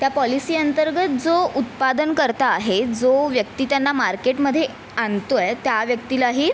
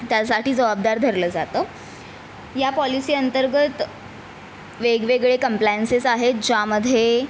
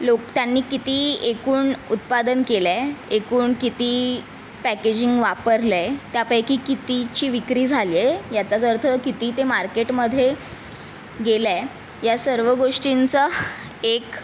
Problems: constant background noise, background conversations at intervals